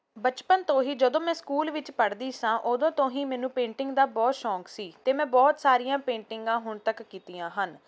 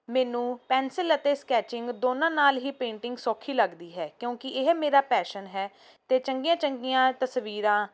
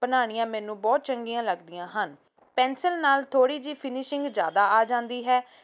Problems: background sounds at intervals